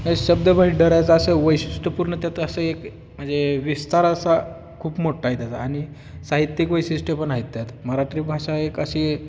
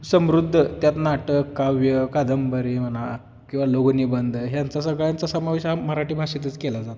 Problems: constant background noise, background conversations at intervals